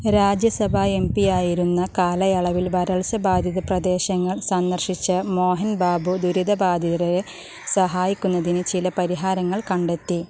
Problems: constant background noise